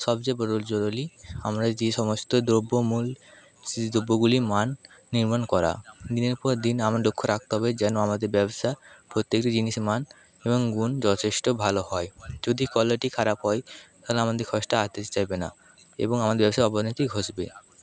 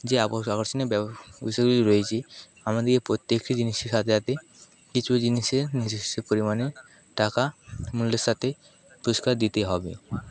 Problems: echo